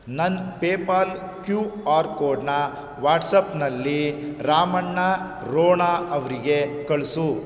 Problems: none marked